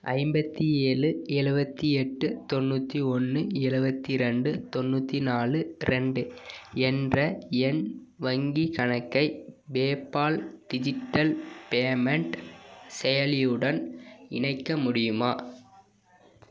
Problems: none marked